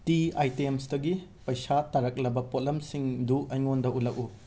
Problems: constant background noise, background conversations at intervals